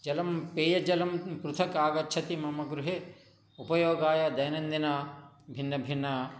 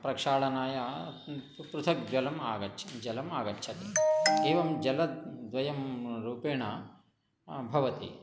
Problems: background sounds at intervals